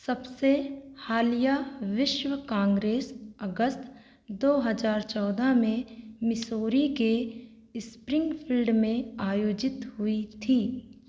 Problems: constant background noise